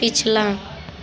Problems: background sounds at intervals, continuous background conversations